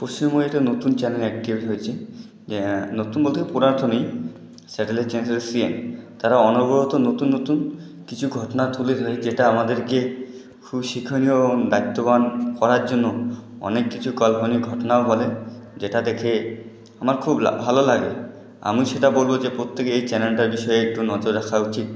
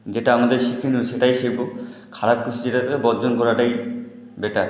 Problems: none marked